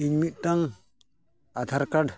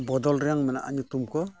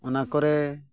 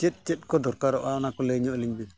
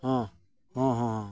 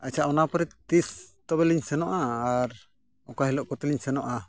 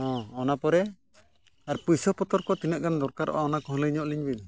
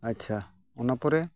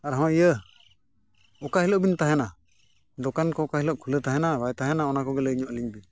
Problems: none marked